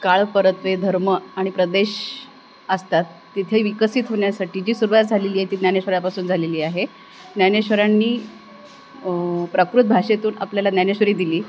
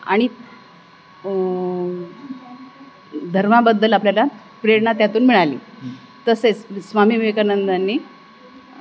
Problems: constant background noise